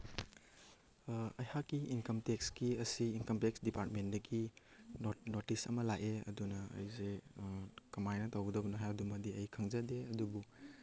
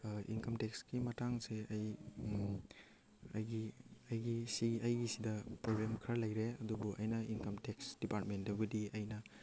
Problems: none marked